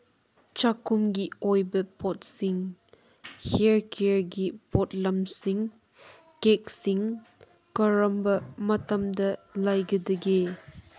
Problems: background sounds at intervals